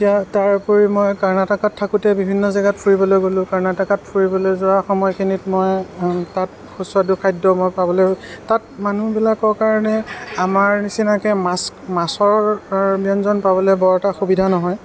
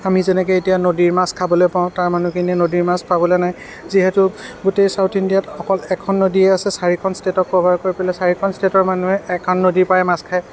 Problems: background sounds at intervals, background conversations at intervals